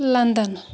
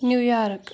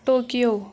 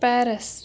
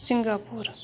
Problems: background sounds at intervals, background conversations at intervals